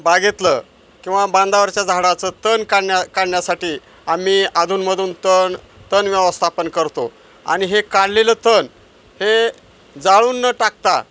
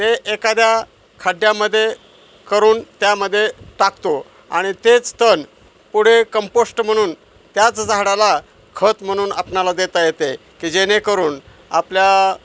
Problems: none marked